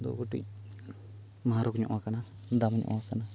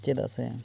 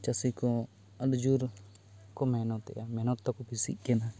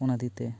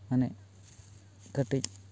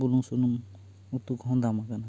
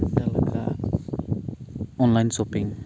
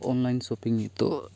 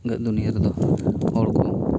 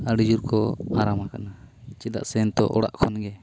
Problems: constant background noise